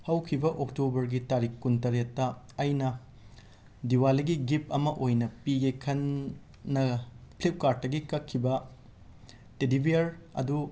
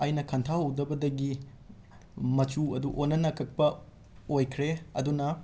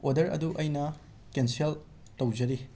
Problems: background sounds at intervals